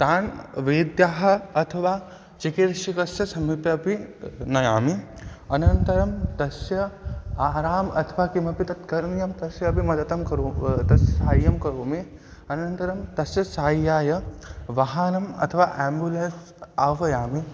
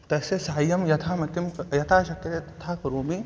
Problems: background sounds at intervals